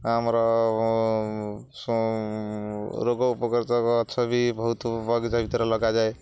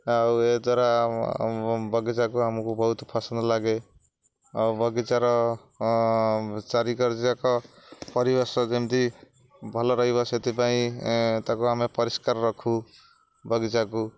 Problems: none marked